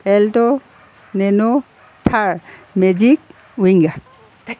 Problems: none marked